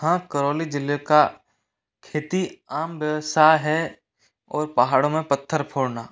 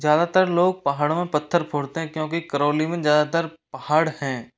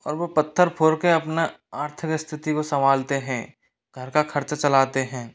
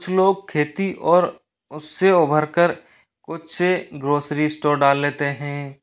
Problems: background sounds at intervals, echo